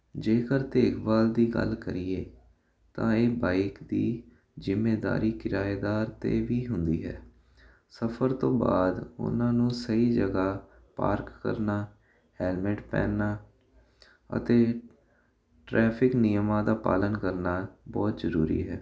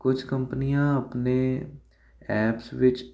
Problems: constant background noise